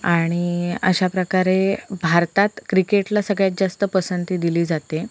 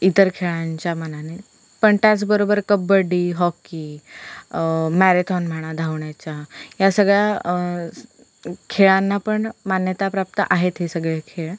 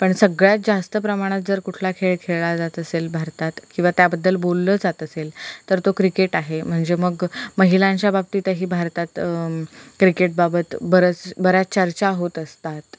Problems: constant background noise